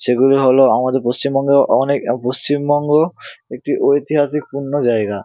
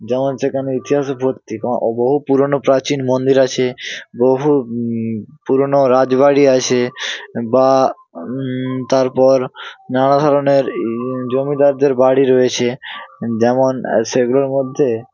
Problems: constant background noise